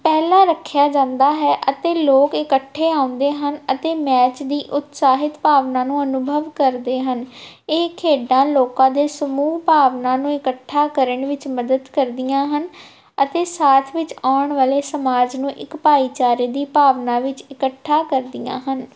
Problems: none marked